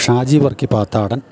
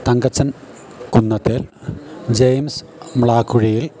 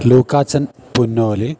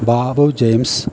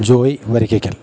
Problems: background sounds at intervals